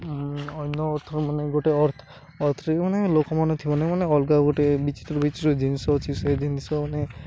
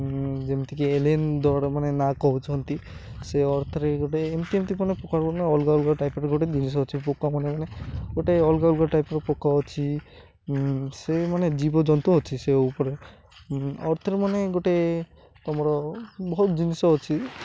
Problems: none marked